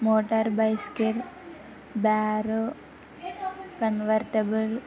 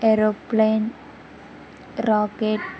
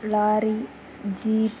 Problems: background sounds at intervals